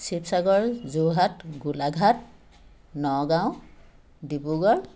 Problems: constant background noise